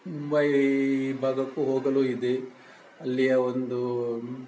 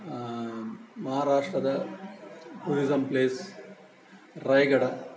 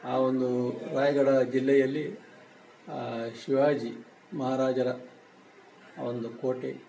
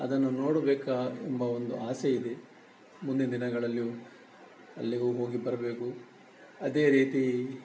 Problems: none marked